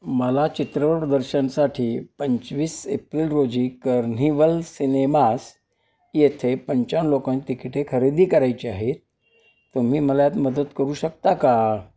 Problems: none marked